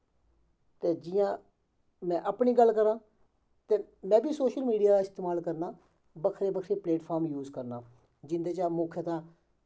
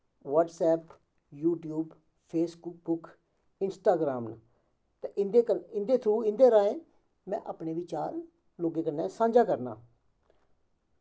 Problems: background sounds at intervals, echo